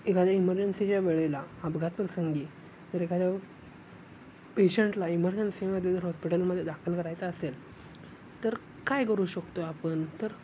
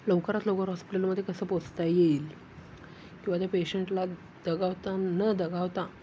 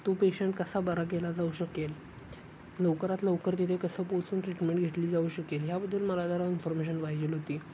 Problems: constant background noise